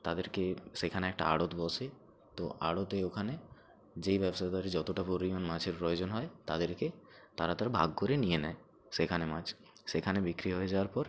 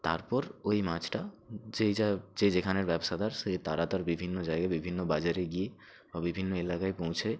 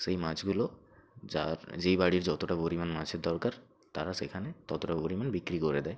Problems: background sounds at intervals